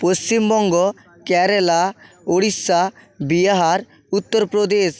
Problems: constant background noise